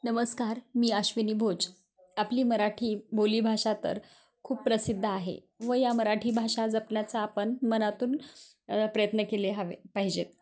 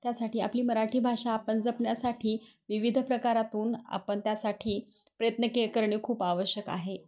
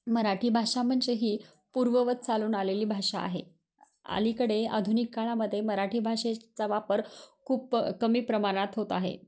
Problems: background sounds at intervals